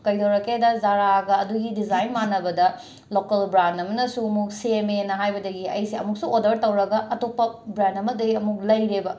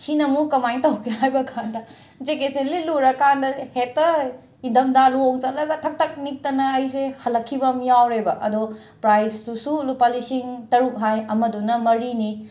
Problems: background sounds at intervals